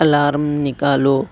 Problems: none marked